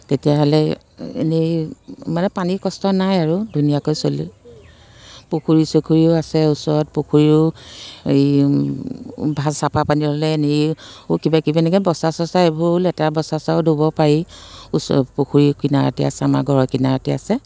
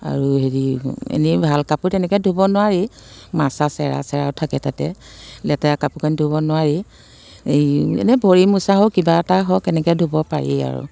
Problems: constant background noise